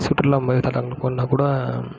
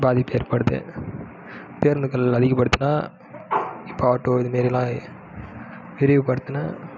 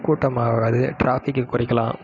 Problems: background sounds at intervals